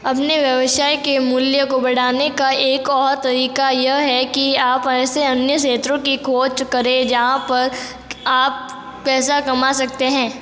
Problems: echo